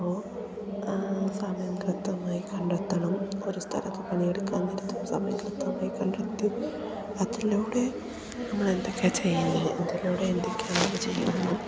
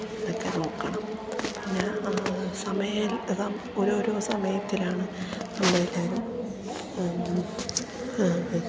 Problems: constant background noise